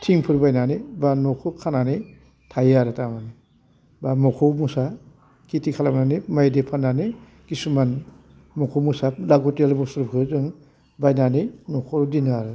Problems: low volume